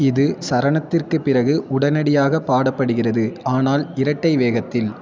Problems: continuous background conversations